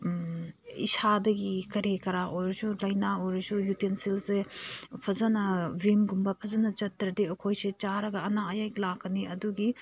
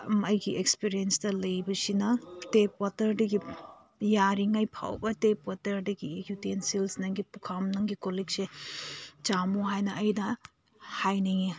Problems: background sounds at intervals